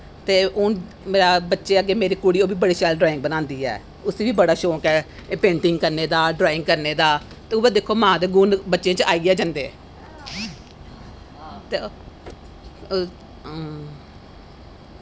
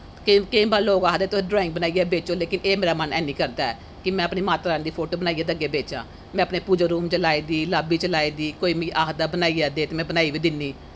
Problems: constant background noise